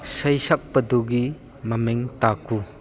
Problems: background sounds at intervals, background conversations at intervals